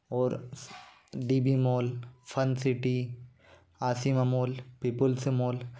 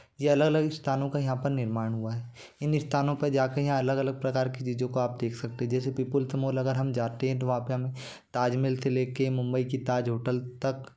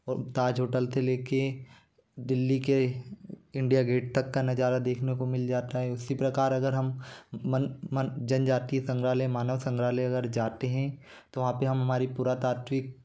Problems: constant background noise